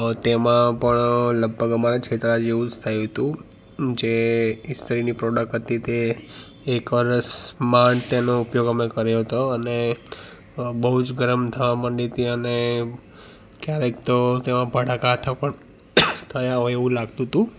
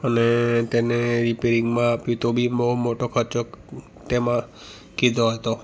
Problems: background sounds at intervals